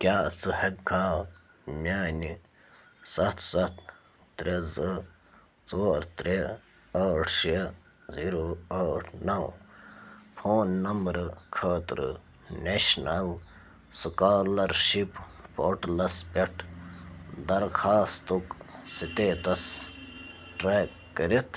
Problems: none marked